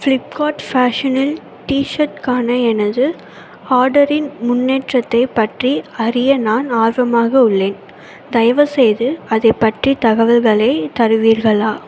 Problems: constant background noise